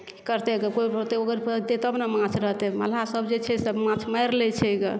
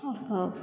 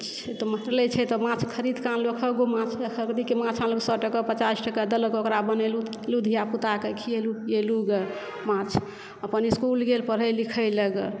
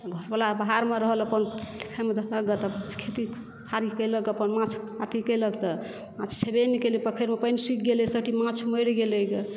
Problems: background sounds at intervals